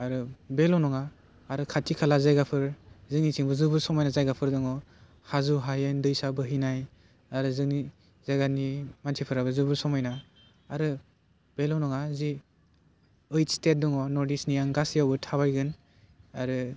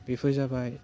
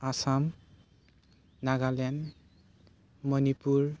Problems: constant background noise